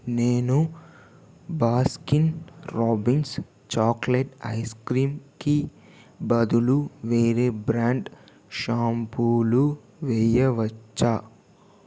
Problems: constant background noise